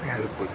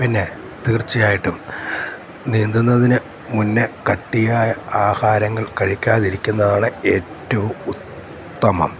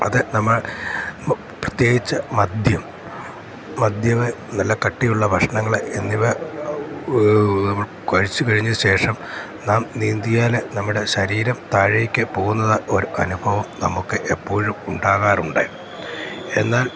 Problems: constant background noise